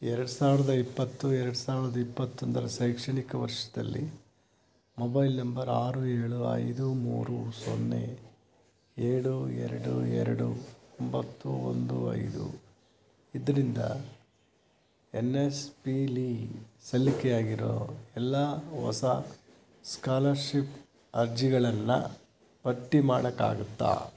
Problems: background sounds at intervals